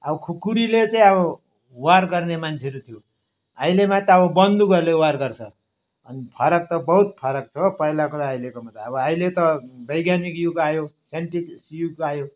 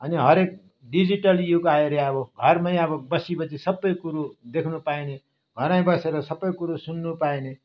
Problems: background sounds at intervals